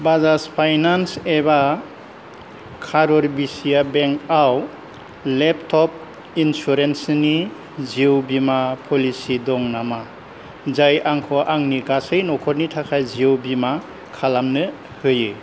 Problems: low volume